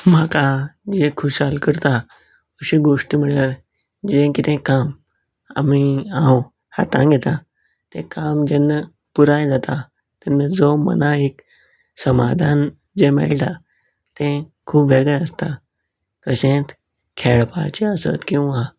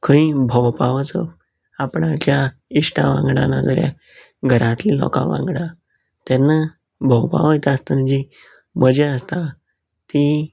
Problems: none marked